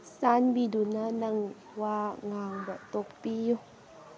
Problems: background sounds at intervals